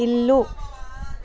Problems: continuous background conversations